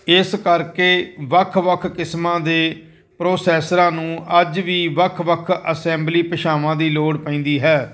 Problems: none marked